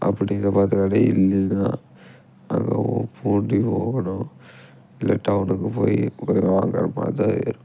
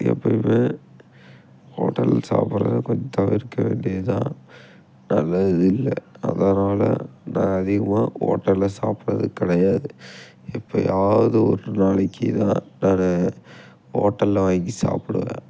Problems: background sounds at intervals